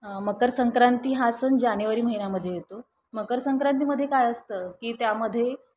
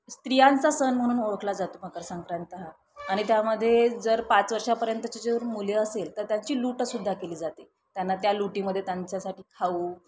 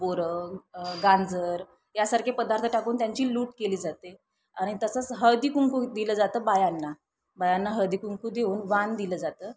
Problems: constant background noise, continuous background conversations